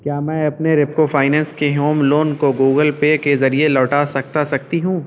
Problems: constant background noise